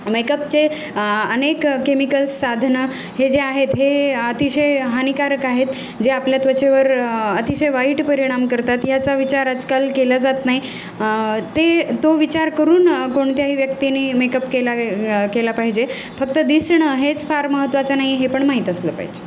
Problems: none marked